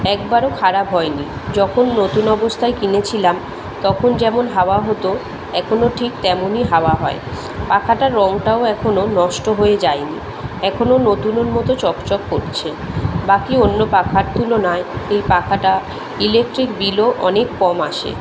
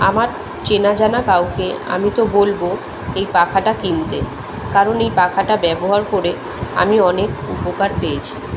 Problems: constant background noise